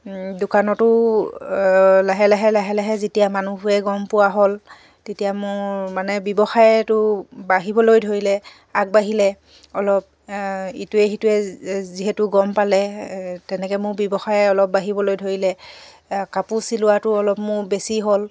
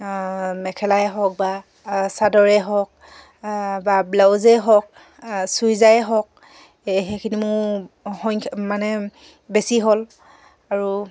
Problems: none marked